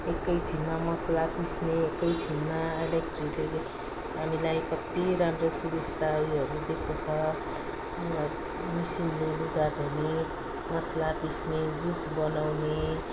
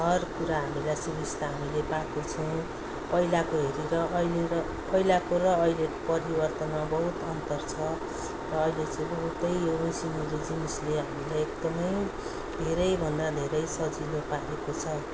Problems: background sounds at intervals, background conversations at intervals